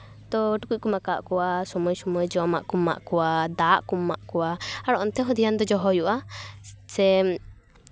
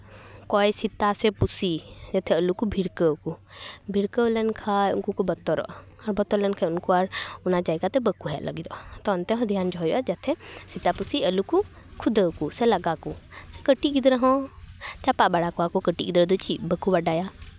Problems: constant background noise, background conversations at intervals